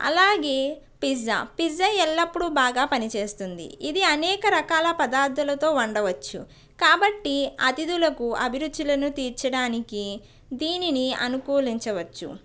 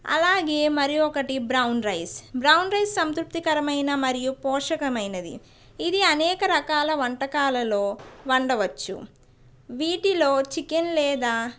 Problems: background sounds at intervals, background conversations at intervals